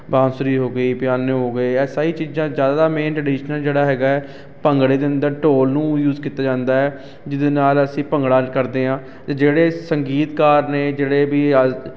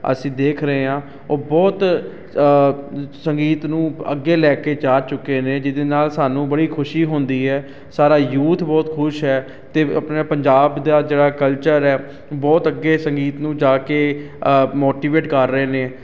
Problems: constant background noise